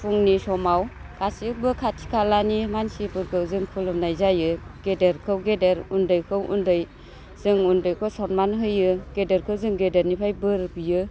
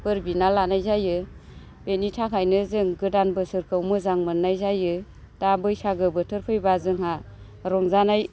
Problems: constant background noise